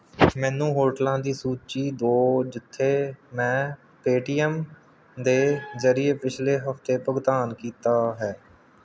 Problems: none marked